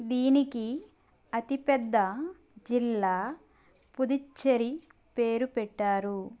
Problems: constant background noise